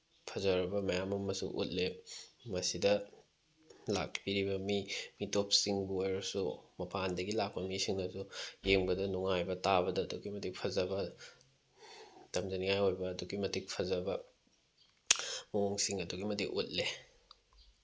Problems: background sounds at intervals